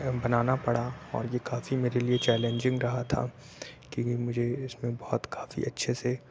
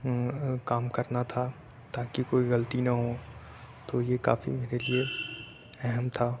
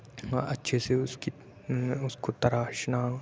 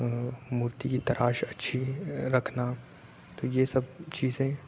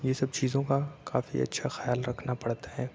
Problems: none marked